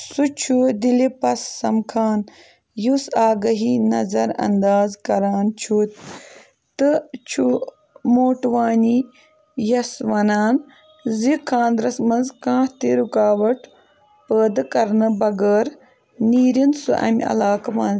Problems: background sounds at intervals